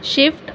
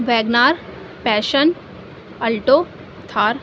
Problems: constant background noise